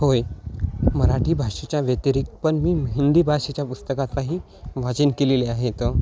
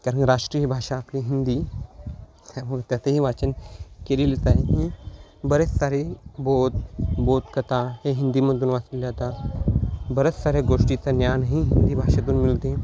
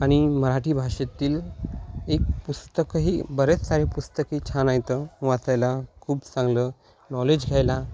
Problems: constant background noise